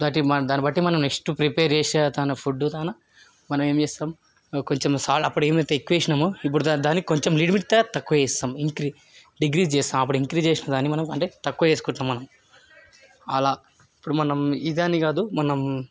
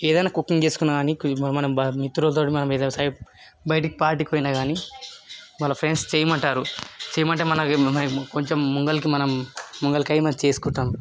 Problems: background sounds at intervals, background conversations at intervals